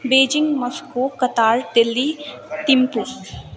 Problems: continuous background conversations